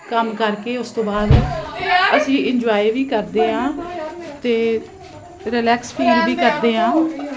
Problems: constant background noise